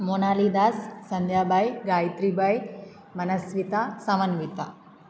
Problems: none marked